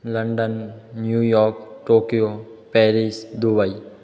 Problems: none marked